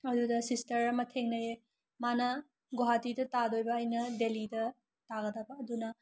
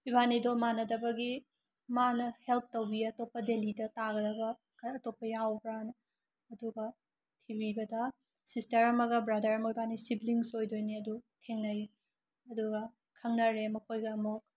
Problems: none marked